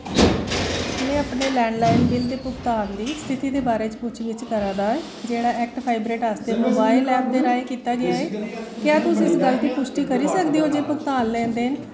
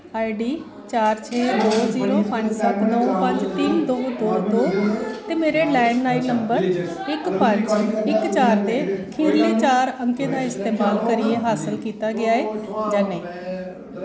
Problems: constant background noise, echo